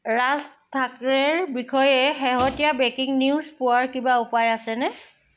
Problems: background sounds at intervals